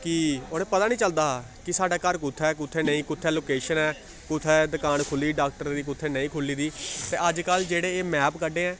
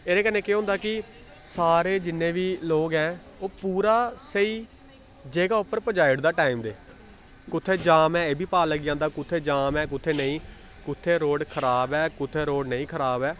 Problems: constant background noise